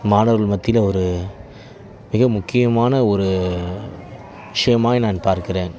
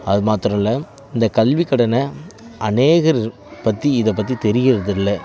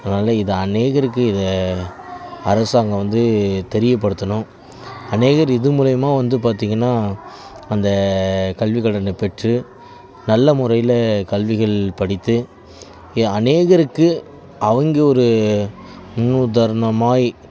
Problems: background sounds at intervals